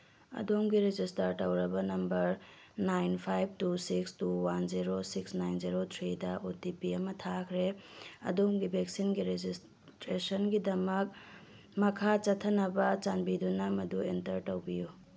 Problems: background sounds at intervals